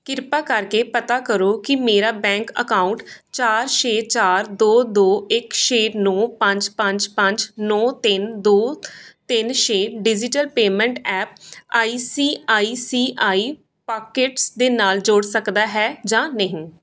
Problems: background sounds at intervals